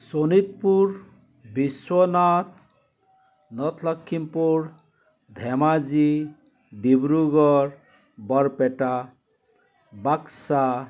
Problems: constant background noise, background conversations at intervals